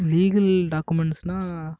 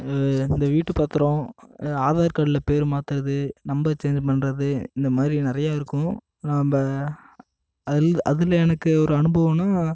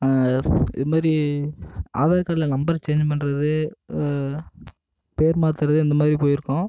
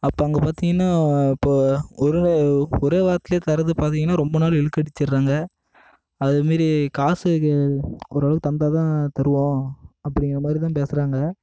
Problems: constant background noise